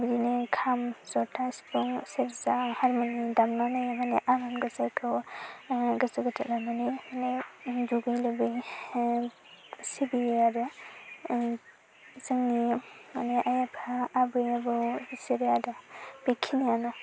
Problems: constant background noise